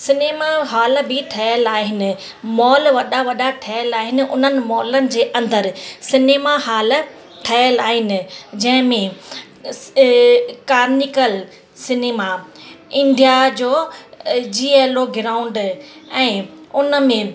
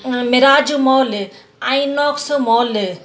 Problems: constant background noise